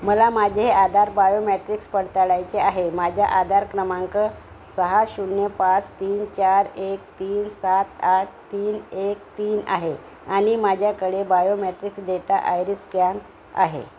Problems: none marked